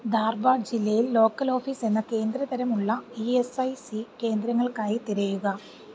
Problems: low volume